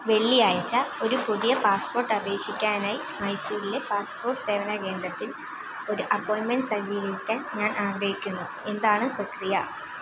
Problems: constant background noise, low volume